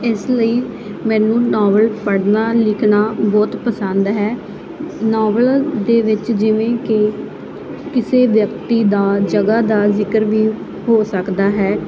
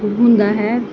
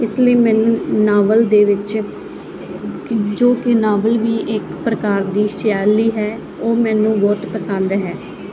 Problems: constant background noise